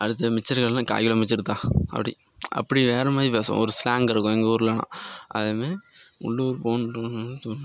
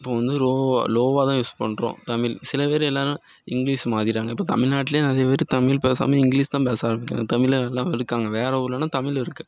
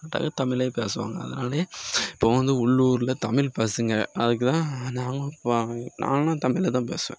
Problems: constant background noise